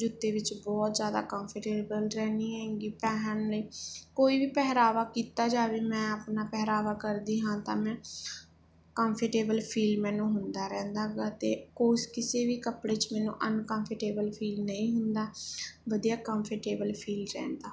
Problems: background sounds at intervals